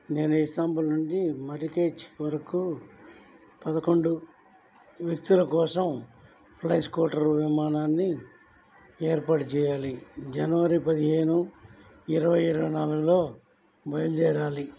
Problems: low volume